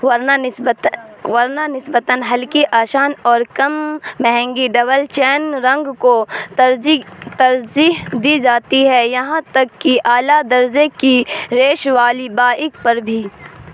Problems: constant background noise